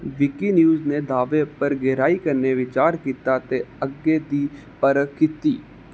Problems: none marked